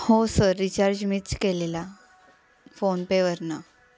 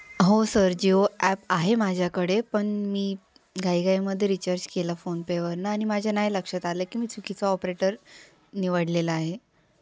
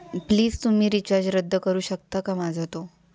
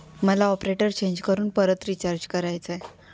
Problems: none marked